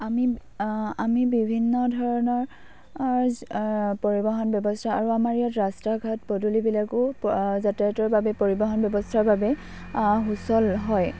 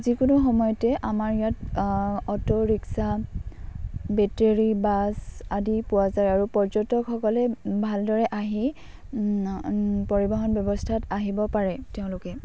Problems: none marked